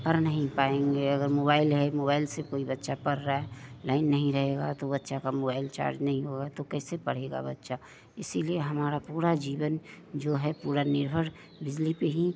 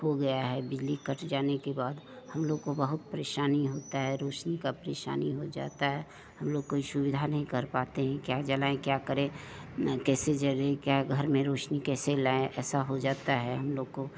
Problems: none marked